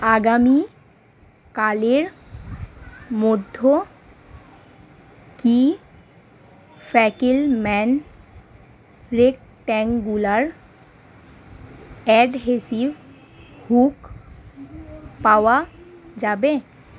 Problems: constant background noise